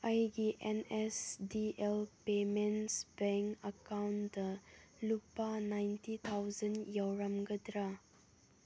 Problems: low volume